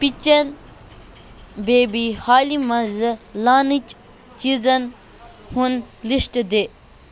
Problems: constant background noise, background conversations at intervals